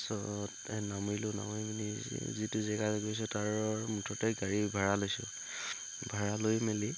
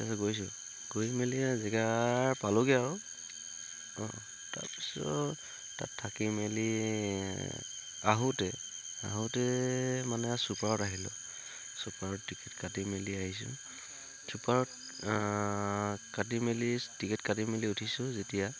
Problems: constant background noise